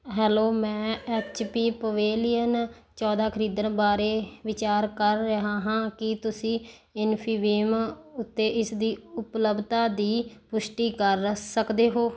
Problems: background conversations at intervals